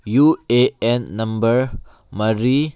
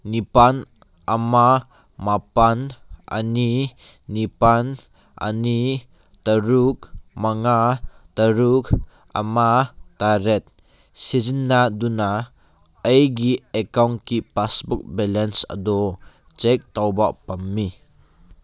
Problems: none marked